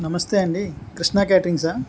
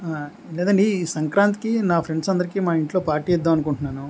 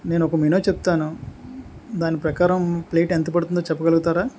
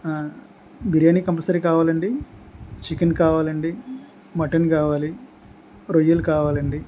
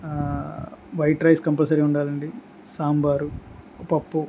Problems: constant background noise